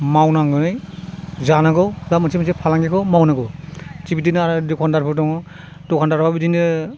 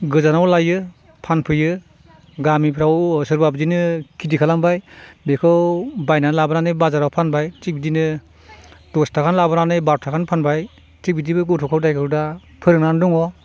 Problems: none marked